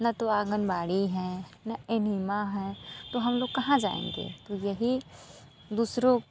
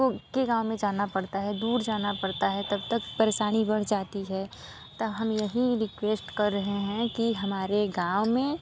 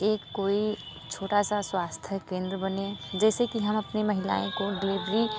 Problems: constant background noise